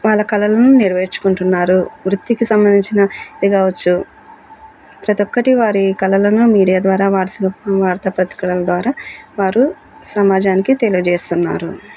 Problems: none marked